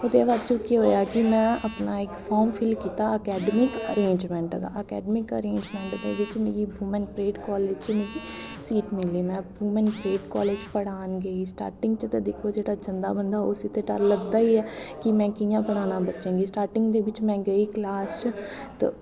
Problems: constant background noise, echo